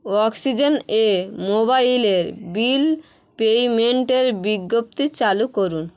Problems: background sounds at intervals